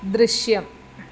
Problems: none marked